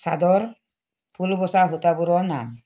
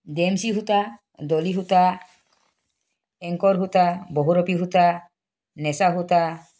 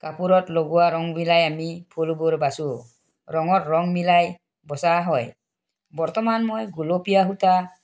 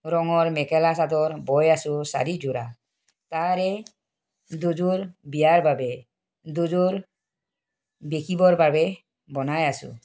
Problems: none marked